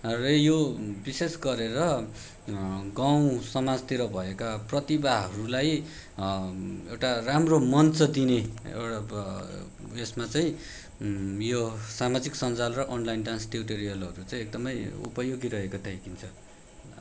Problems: background sounds at intervals